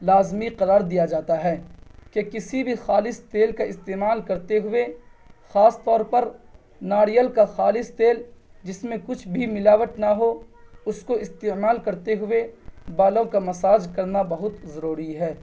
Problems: none marked